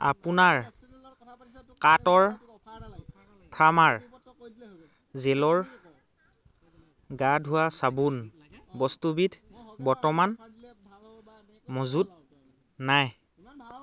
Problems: continuous background conversations